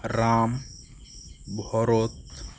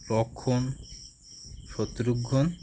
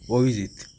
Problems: constant background noise